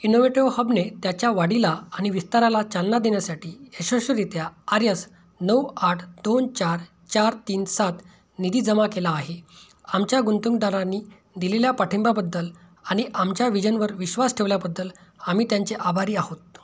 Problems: none marked